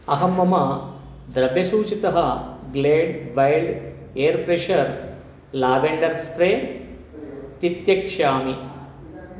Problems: constant background noise